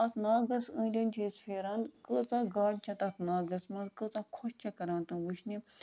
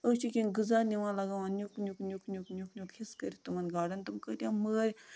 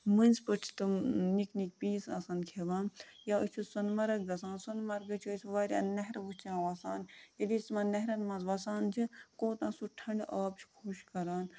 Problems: constant background noise